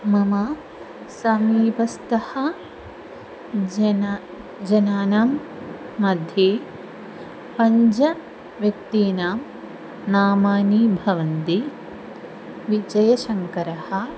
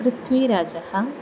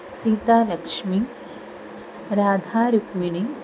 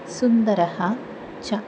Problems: none marked